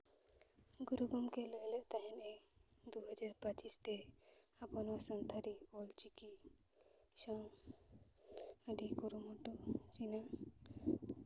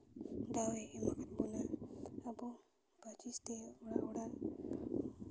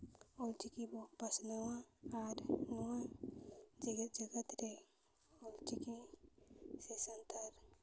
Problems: low volume